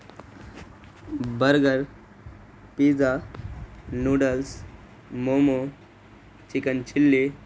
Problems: constant background noise